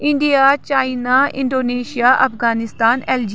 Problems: background sounds at intervals